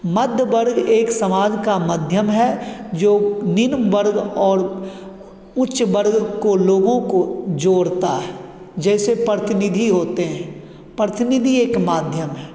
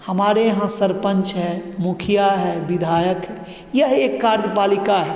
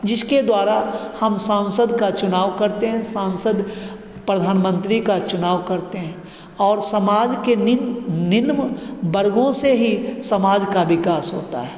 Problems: constant background noise, background conversations at intervals, echo